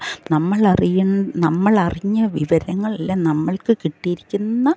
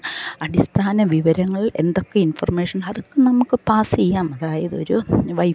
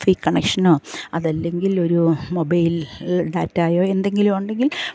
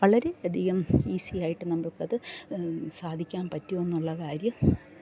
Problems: low volume